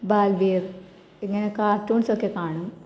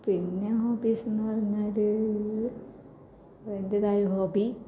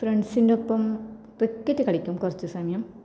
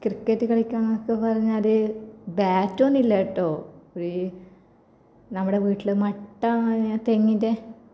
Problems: none marked